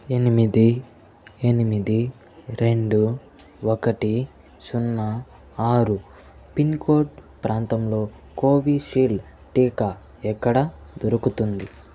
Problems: none marked